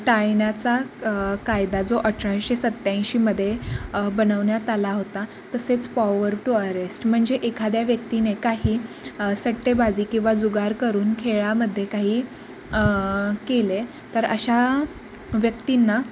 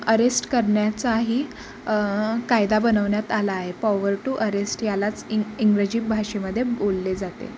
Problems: constant background noise